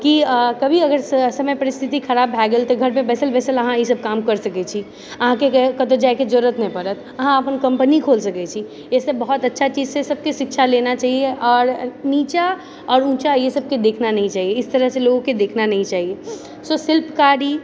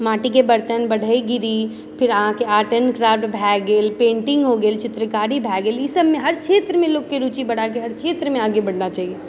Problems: none marked